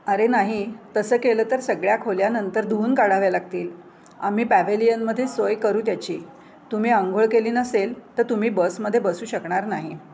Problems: none marked